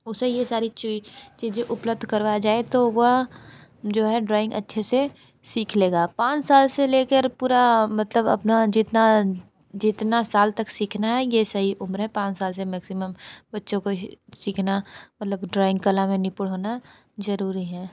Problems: constant background noise